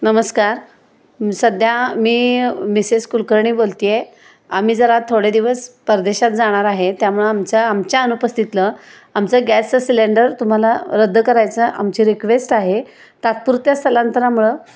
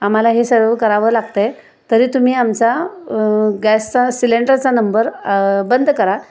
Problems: background sounds at intervals